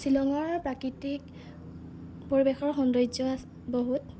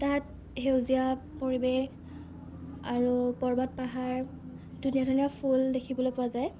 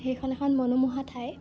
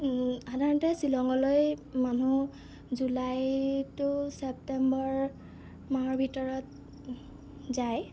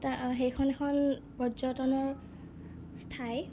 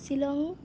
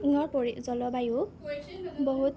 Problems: none marked